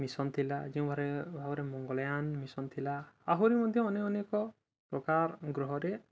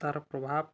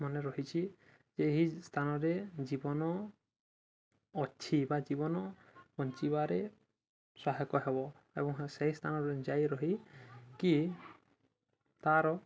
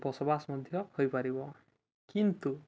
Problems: constant background noise, continuous background conversations